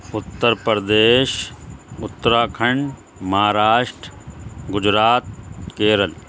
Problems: constant background noise